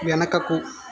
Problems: constant background noise